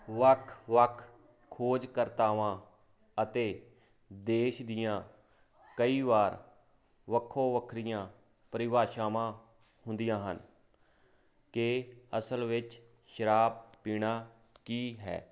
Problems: constant background noise